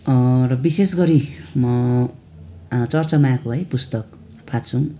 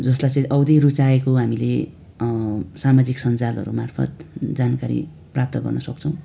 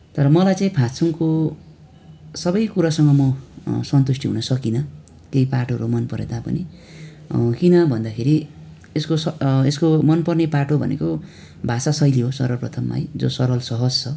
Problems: none marked